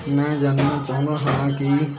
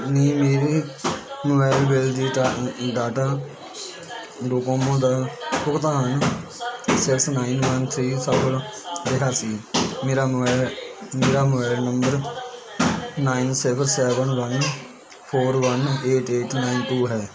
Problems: constant background noise, continuous background conversations